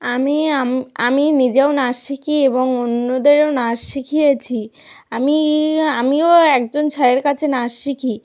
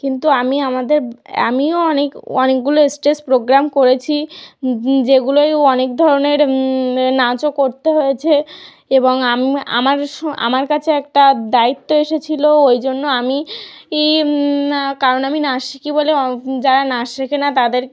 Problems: none marked